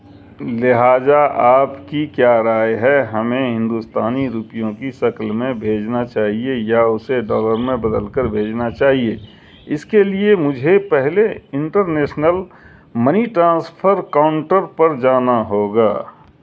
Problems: none marked